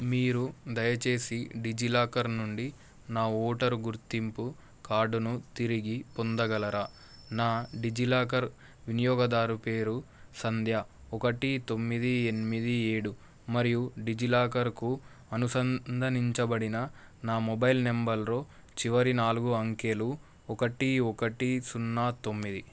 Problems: constant background noise